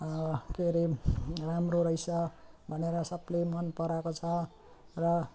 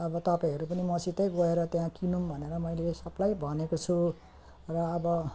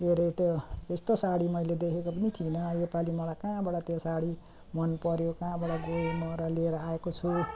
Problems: continuous background conversations